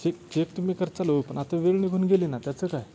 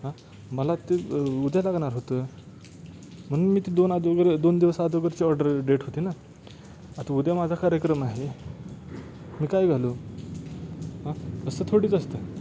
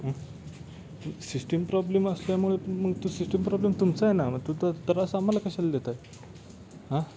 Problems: constant background noise